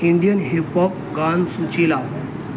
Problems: constant background noise